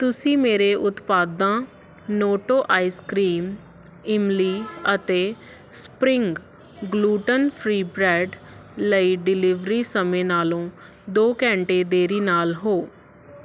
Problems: constant background noise